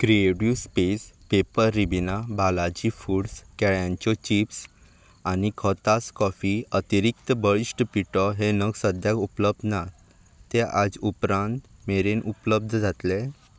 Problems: background sounds at intervals